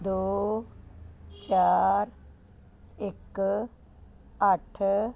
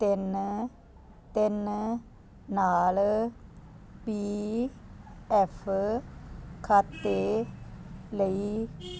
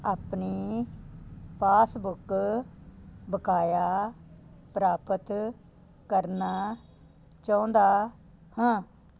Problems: constant background noise